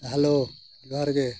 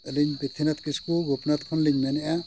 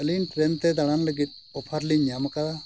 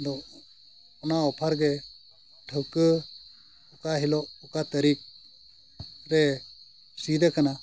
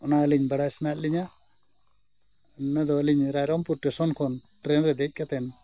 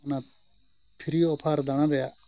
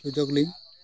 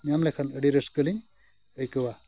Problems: background sounds at intervals, background conversations at intervals